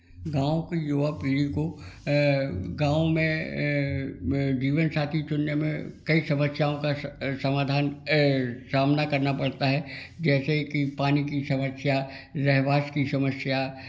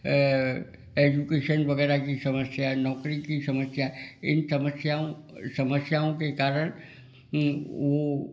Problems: background sounds at intervals